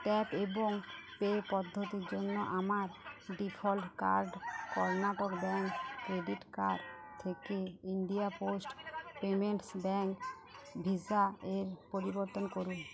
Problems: constant background noise, background conversations at intervals, low volume